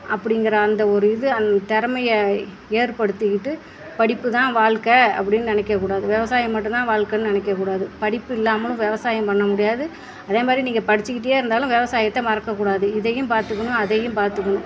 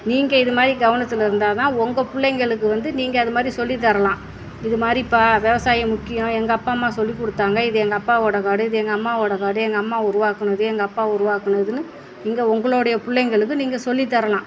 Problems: none marked